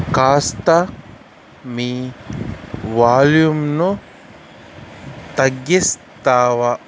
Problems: constant background noise